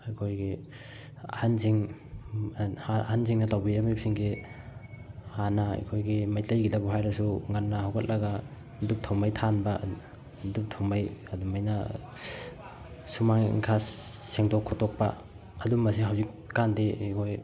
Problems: none marked